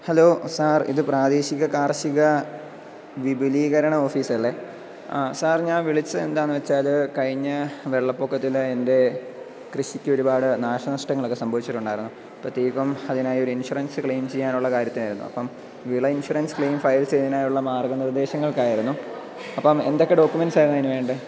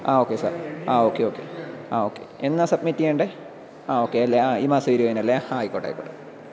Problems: none marked